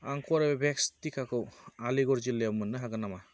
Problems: constant background noise